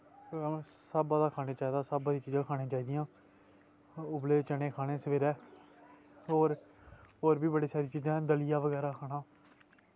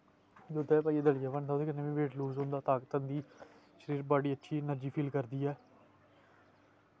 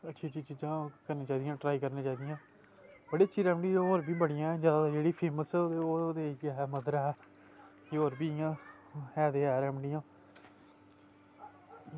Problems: constant background noise